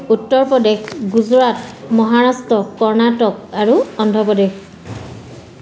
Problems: constant background noise, background conversations at intervals